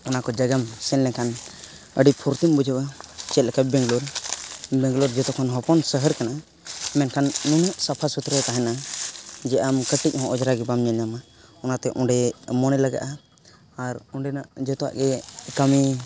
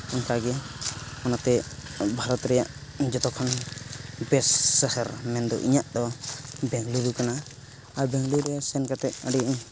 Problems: background sounds at intervals